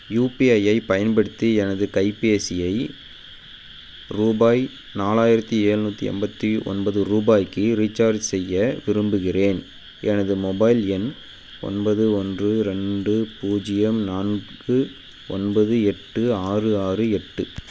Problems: constant background noise